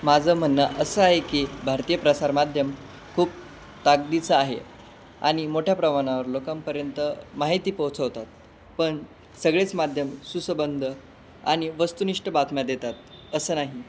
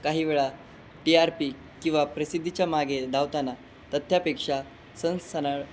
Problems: none marked